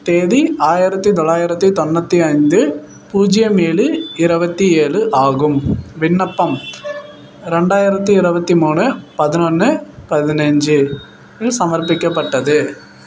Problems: none marked